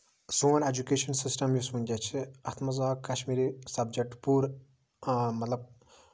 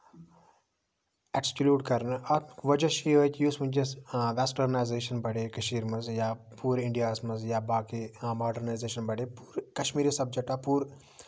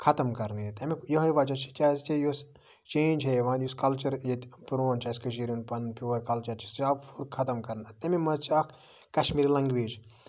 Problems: background sounds at intervals